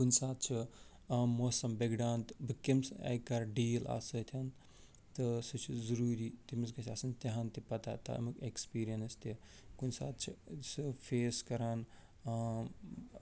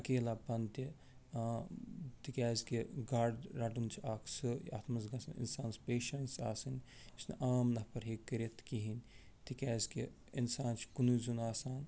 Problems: none marked